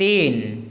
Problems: constant background noise